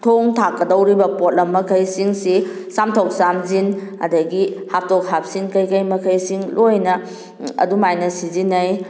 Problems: none marked